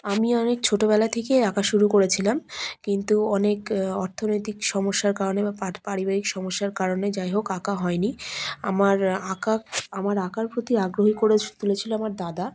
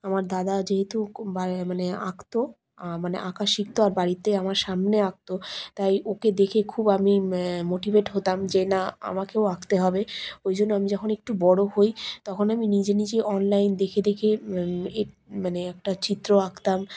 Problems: background sounds at intervals